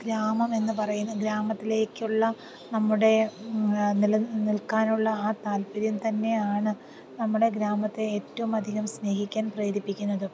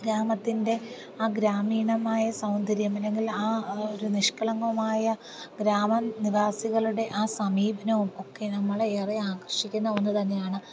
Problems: low volume